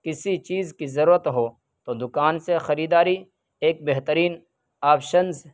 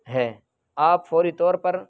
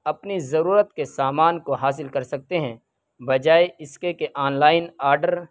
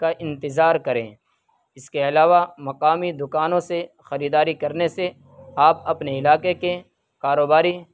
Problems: background sounds at intervals